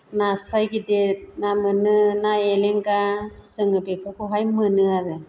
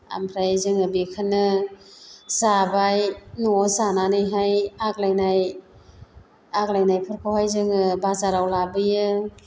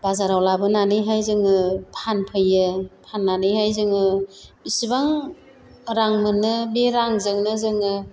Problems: constant background noise